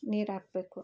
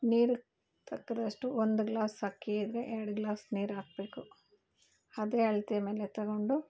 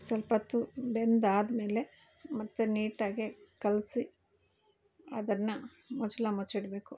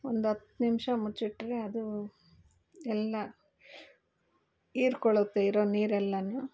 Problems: none marked